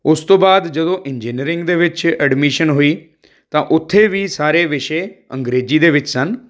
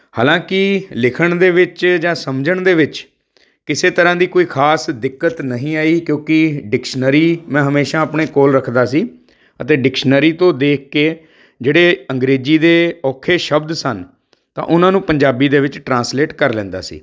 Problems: none marked